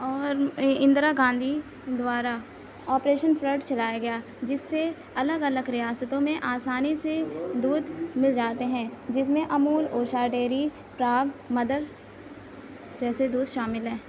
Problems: background sounds at intervals